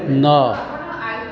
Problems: constant background noise